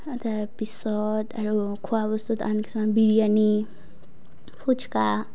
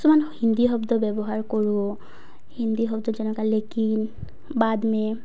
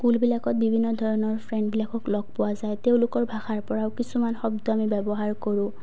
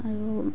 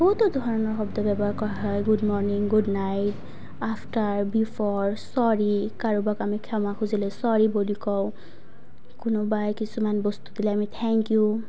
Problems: low volume